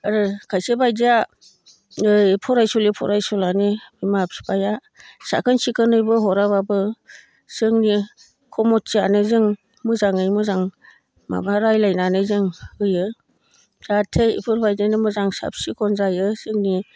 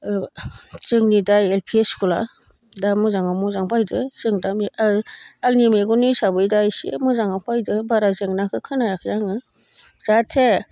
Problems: constant background noise